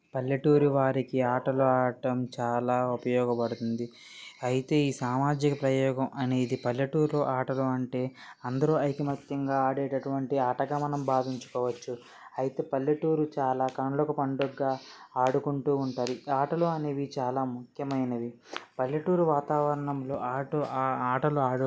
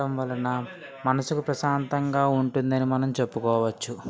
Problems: constant background noise, background conversations at intervals